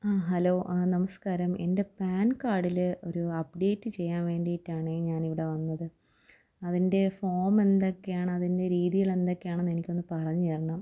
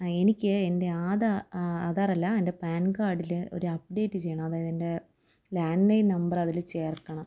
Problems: low volume